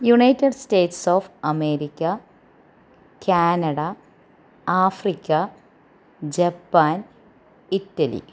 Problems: none marked